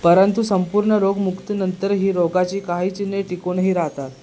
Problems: background sounds at intervals